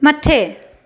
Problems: echo